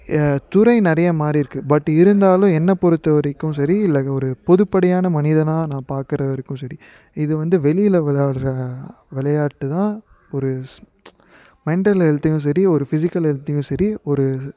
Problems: background conversations at intervals